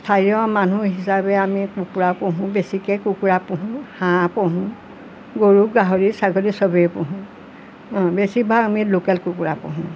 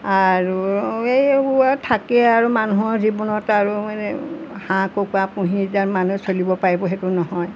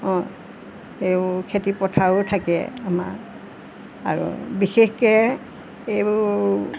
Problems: constant background noise